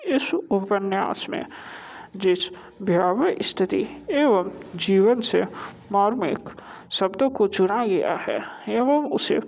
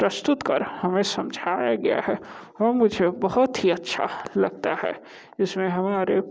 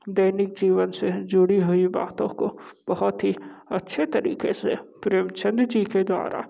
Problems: constant background noise